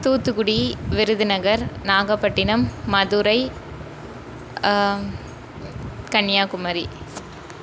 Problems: constant background noise